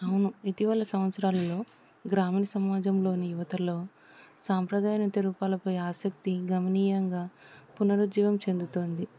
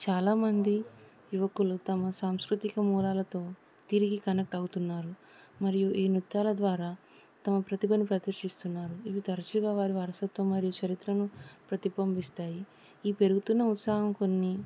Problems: none marked